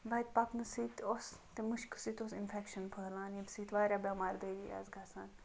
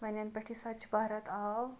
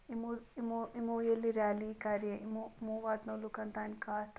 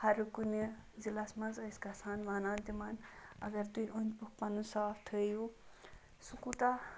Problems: background sounds at intervals